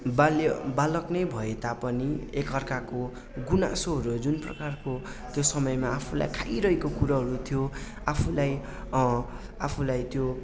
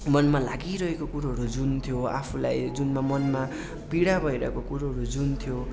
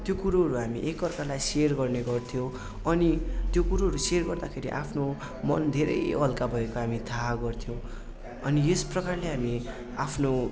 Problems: constant background noise